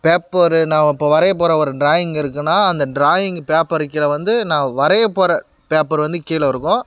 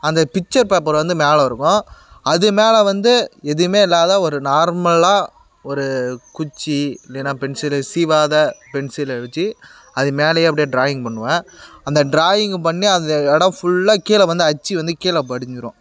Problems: none marked